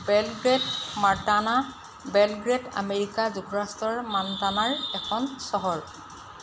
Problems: constant background noise